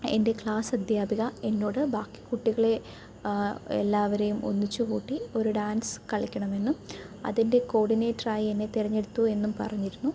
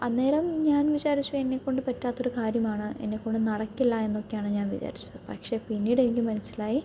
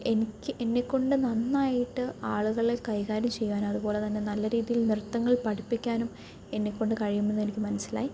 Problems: none marked